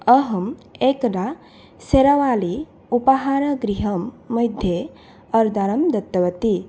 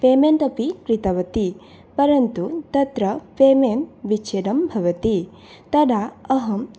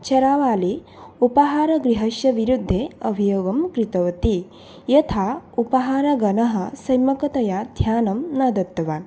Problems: none marked